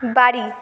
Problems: none marked